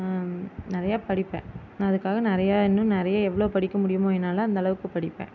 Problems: constant background noise